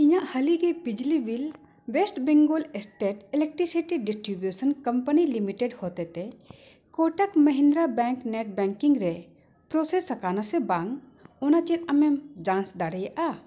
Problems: background sounds at intervals